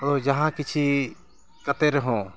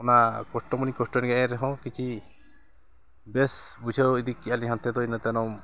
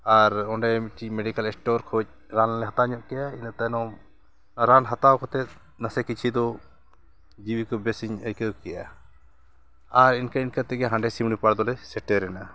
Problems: constant background noise